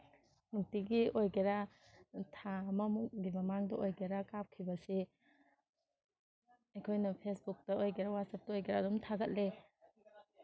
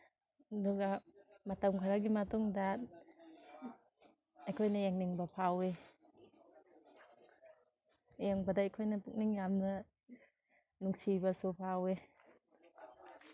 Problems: background sounds at intervals